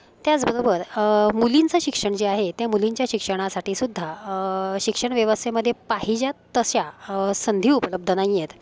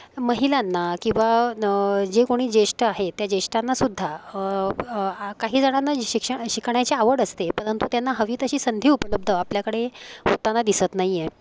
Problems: constant background noise, continuous background conversations